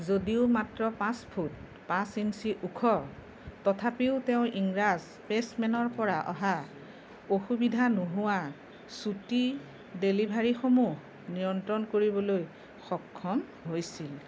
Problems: none marked